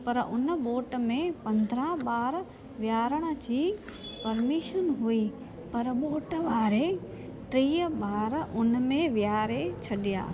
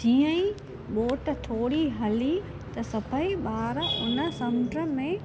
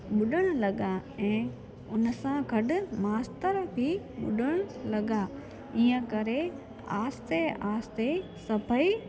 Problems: constant background noise, echo